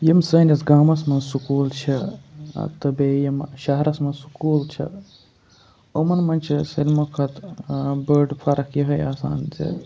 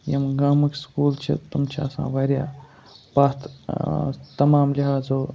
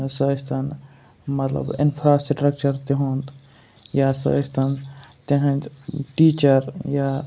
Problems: constant background noise